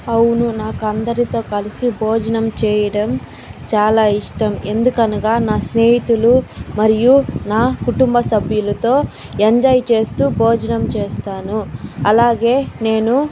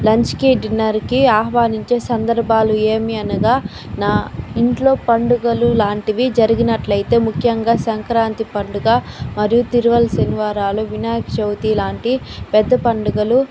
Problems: constant background noise